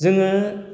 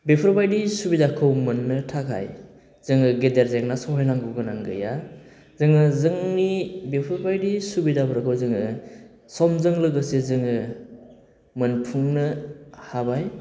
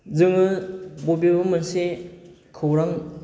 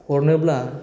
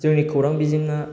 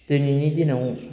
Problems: constant background noise